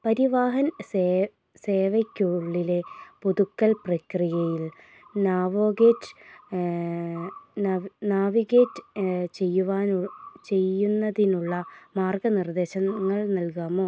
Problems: none marked